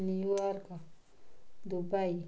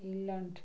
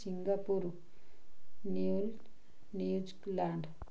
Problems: none marked